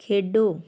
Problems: none marked